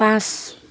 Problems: constant background noise